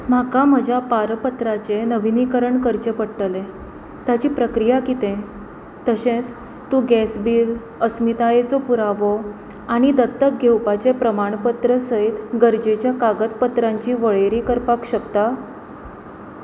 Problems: constant background noise